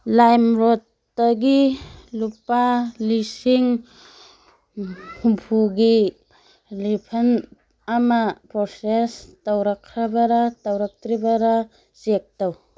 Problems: background sounds at intervals, background conversations at intervals